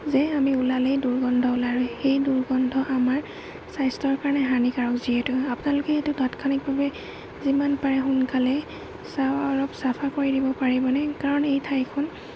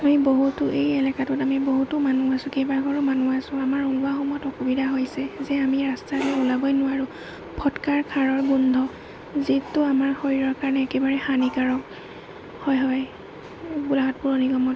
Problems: constant background noise, low volume